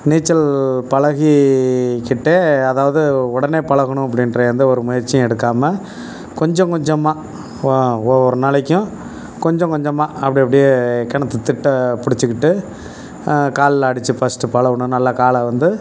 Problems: background sounds at intervals